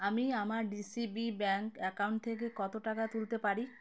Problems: constant background noise